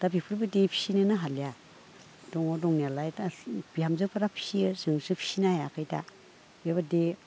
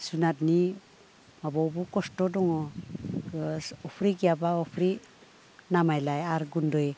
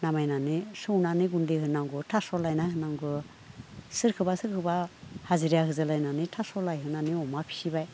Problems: low volume